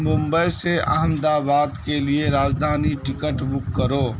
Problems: constant background noise